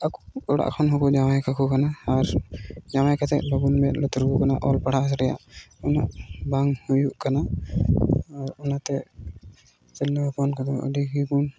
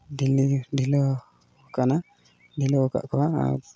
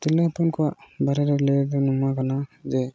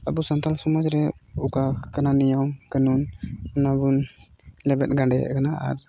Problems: background sounds at intervals